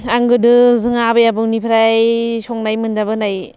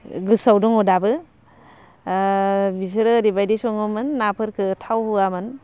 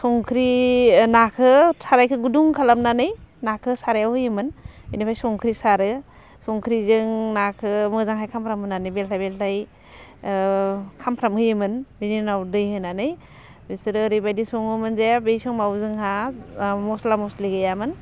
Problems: constant background noise